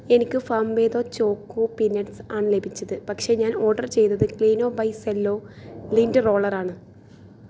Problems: background sounds at intervals